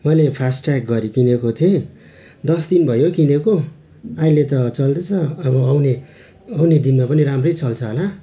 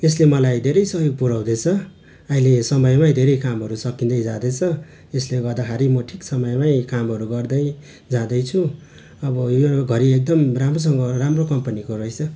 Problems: constant background noise